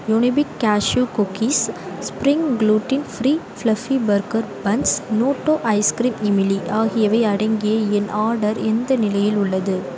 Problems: background sounds at intervals